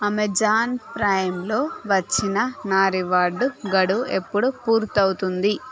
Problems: background sounds at intervals, continuous background conversations